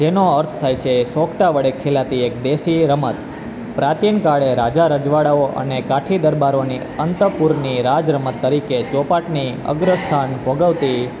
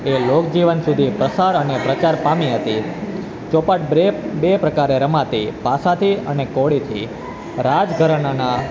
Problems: constant background noise